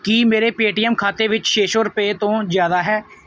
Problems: background sounds at intervals